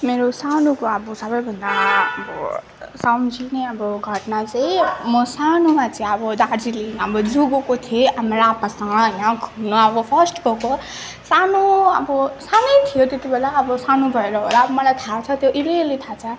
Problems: background sounds at intervals, background conversations at intervals